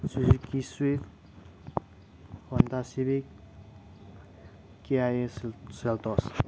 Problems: background sounds at intervals, low volume